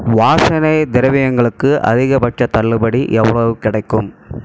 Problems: constant background noise